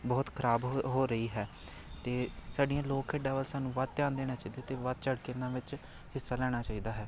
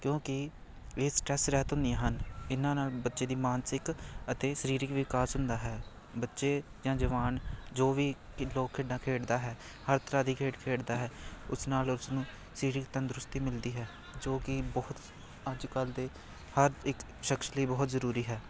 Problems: continuous background conversations